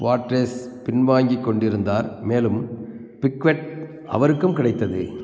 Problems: constant background noise